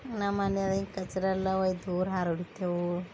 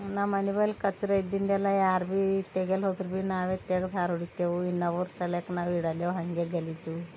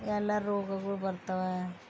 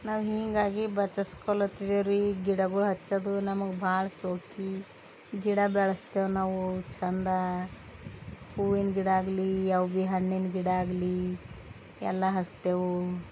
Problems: background conversations at intervals